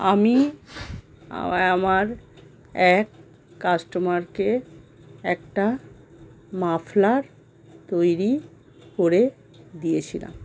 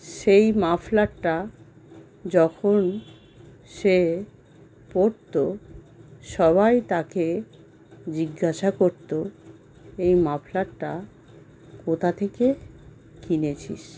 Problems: constant background noise